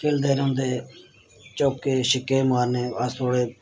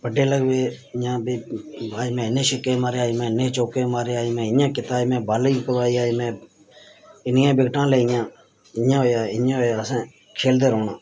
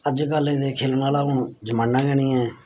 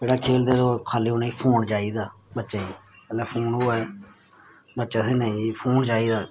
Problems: background sounds at intervals